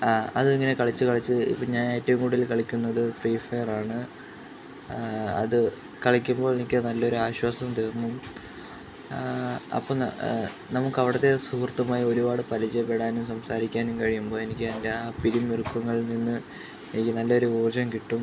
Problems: constant background noise